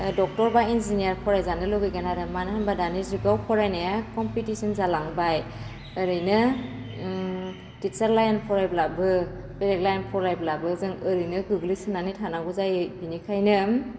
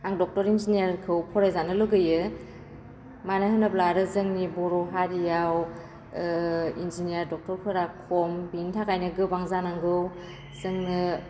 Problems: constant background noise